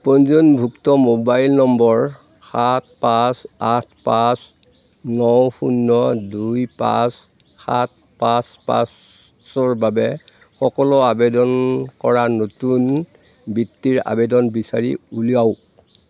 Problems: none marked